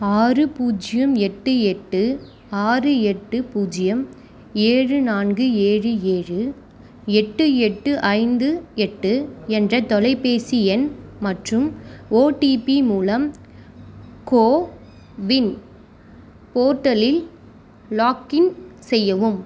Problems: constant background noise